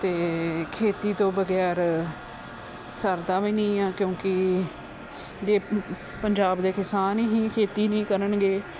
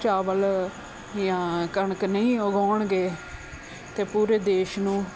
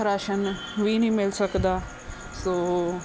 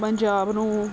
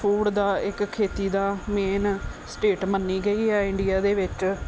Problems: background sounds at intervals